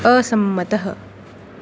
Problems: constant background noise